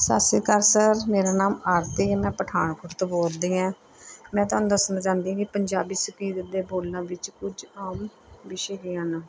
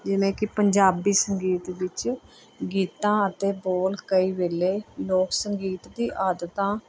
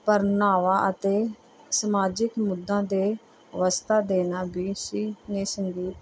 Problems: background sounds at intervals